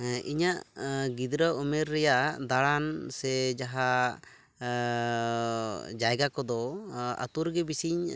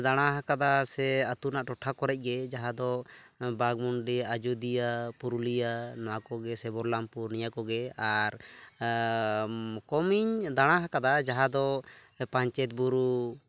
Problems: background sounds at intervals